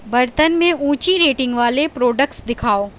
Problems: constant background noise